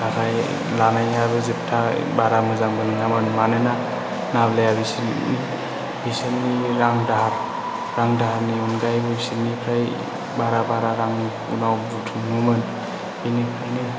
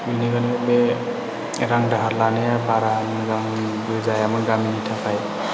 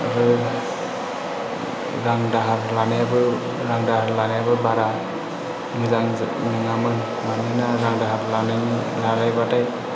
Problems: constant background noise, low volume